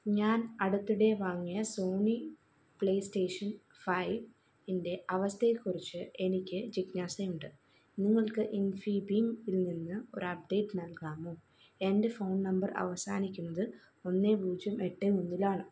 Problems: low volume